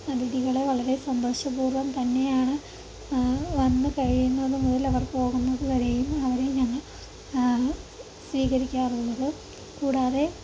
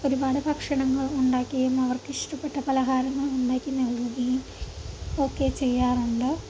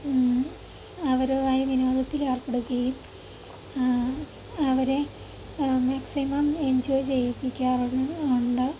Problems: constant background noise, low volume